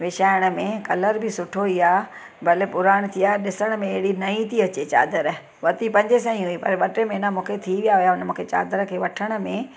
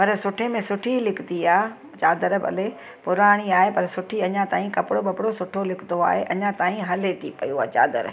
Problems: constant background noise